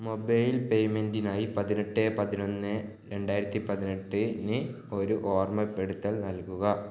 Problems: low volume